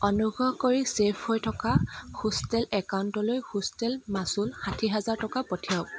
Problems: constant background noise